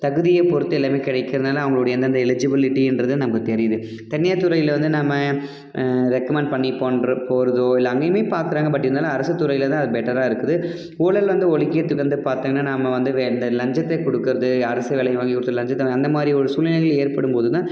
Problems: background conversations at intervals